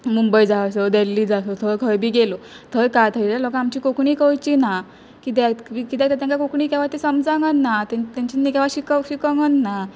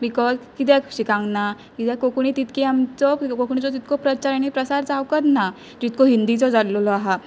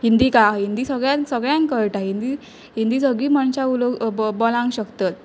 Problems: background sounds at intervals